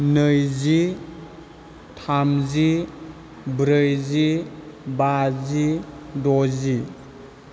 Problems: none marked